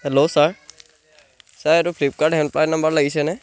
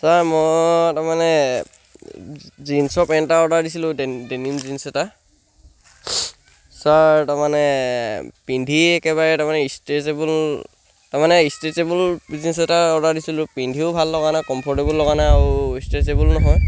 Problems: background sounds at intervals